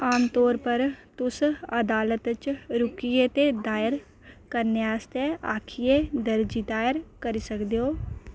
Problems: none marked